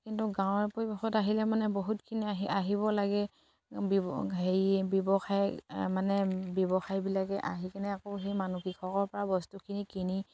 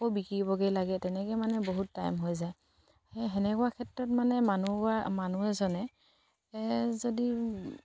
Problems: none marked